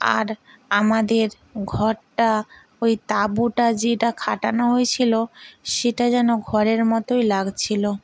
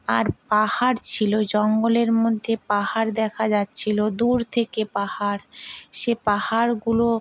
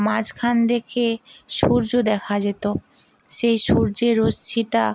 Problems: none marked